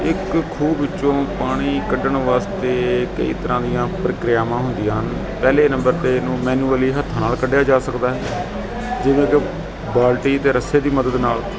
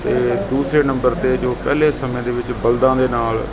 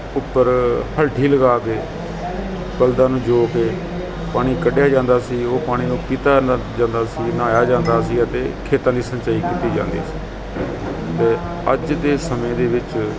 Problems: constant background noise